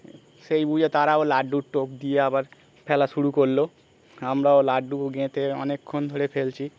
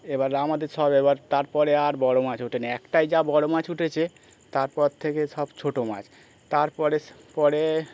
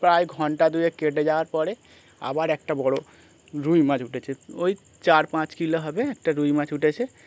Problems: constant background noise